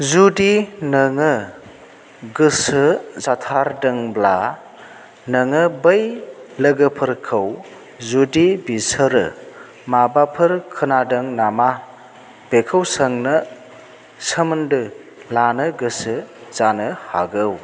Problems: none marked